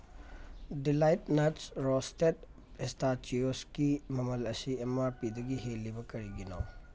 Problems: none marked